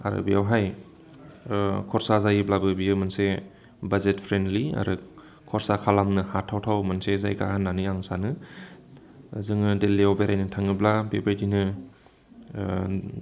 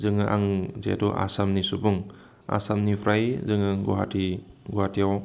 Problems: constant background noise